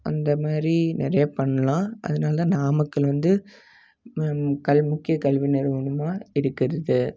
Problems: none marked